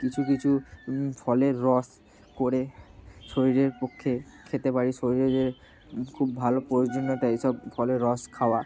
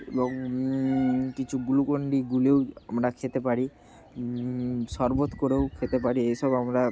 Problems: none marked